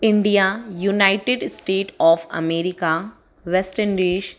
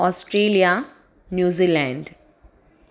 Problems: constant background noise